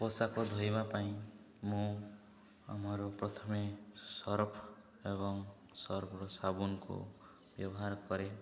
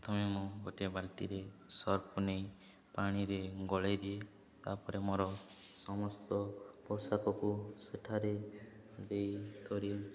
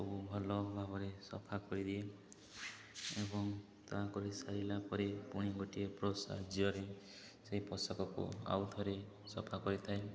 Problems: low volume